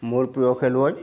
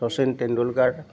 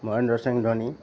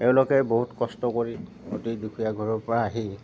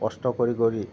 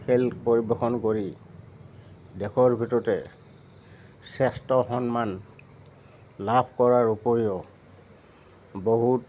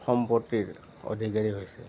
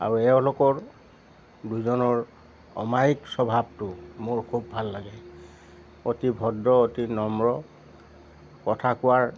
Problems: constant background noise